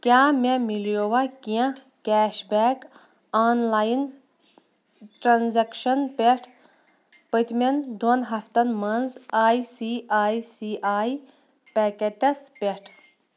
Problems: background sounds at intervals